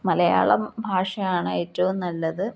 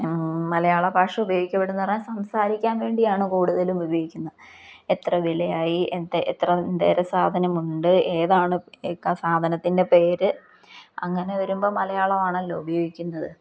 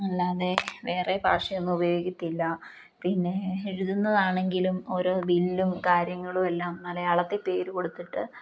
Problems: none marked